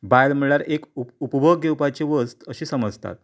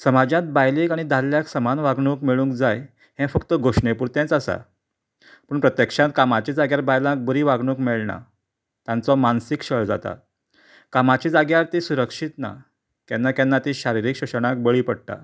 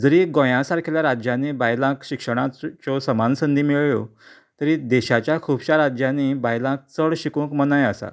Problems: background sounds at intervals